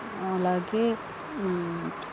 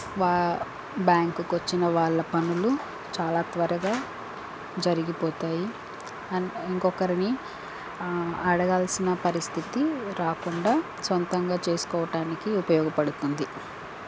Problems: constant background noise